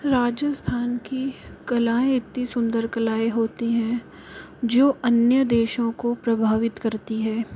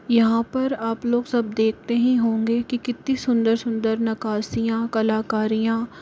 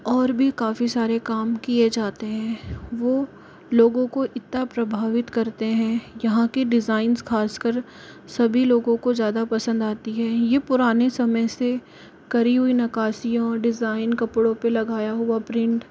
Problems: constant background noise